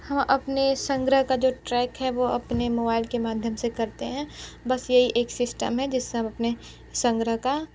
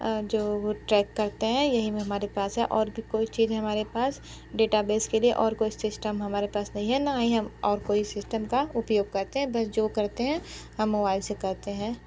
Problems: none marked